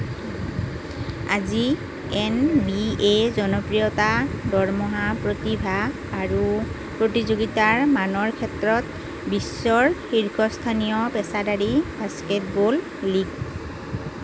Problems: constant background noise